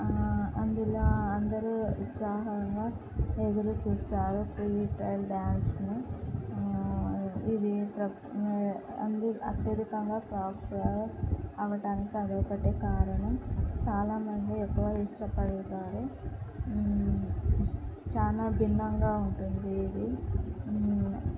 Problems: constant background noise, low volume